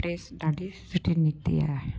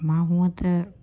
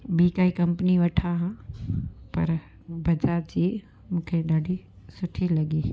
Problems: constant background noise